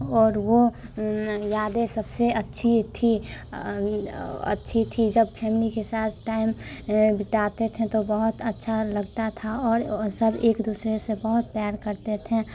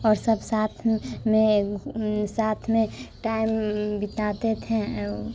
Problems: background sounds at intervals